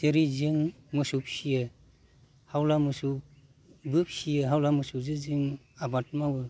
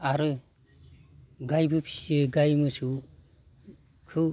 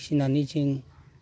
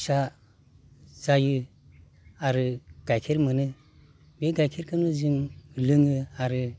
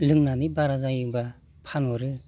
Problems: constant background noise